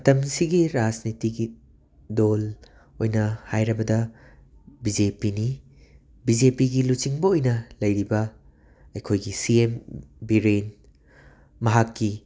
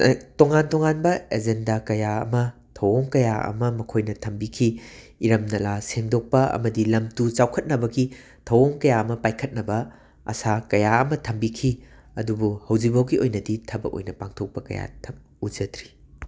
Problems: constant background noise